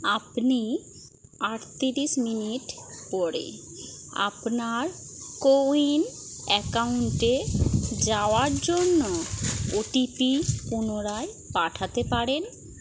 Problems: none marked